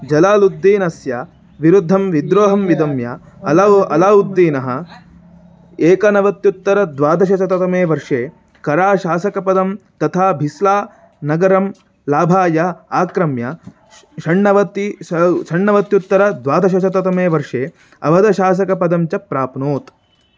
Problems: constant background noise